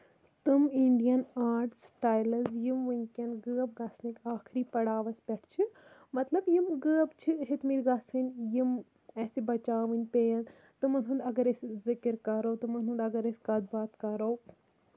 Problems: none marked